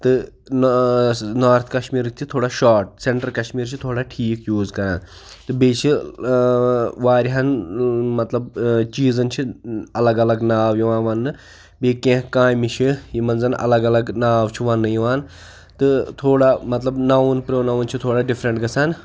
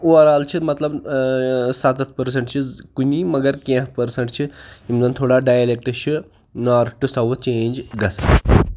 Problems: none marked